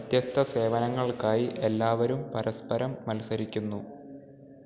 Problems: constant background noise